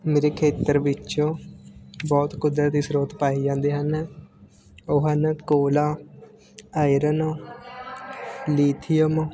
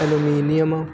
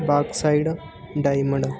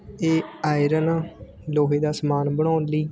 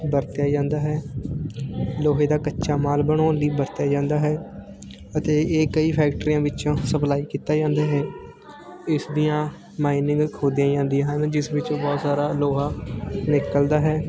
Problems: constant background noise, continuous background conversations